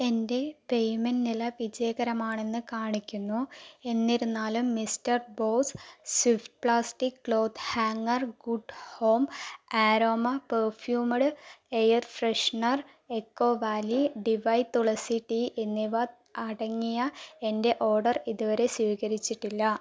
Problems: low volume